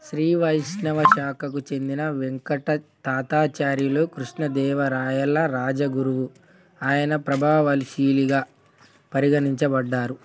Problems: background sounds at intervals, background conversations at intervals